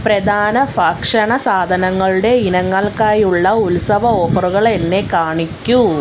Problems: none marked